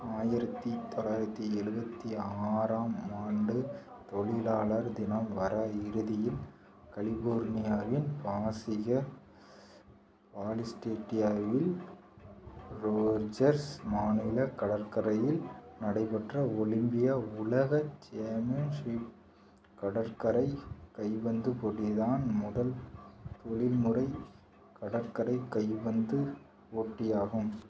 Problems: low volume